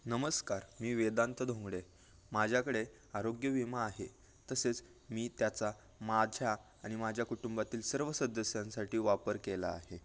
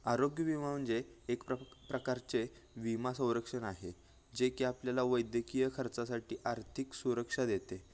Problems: background sounds at intervals